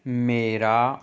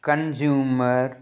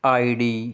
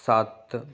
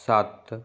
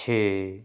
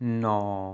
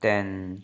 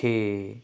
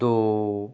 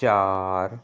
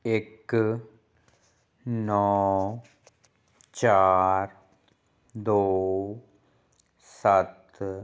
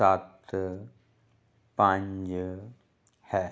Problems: none marked